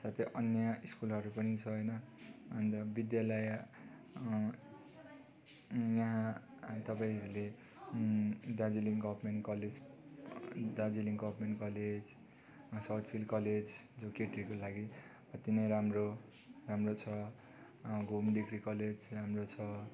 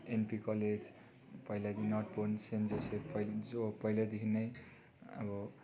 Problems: constant background noise